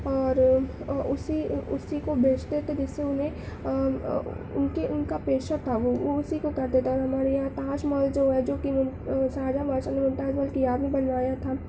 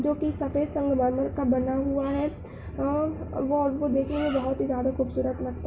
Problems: constant background noise